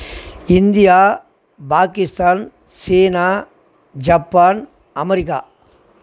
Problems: none marked